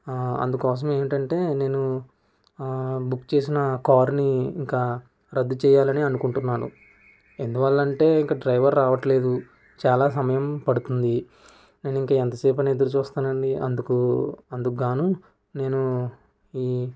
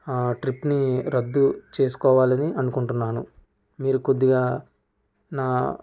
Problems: constant background noise